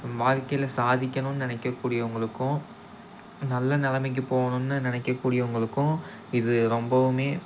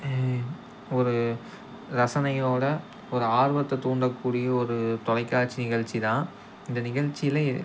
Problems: constant background noise